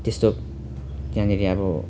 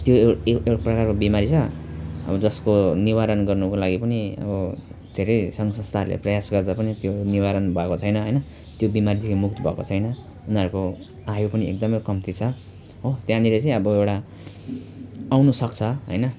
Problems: none marked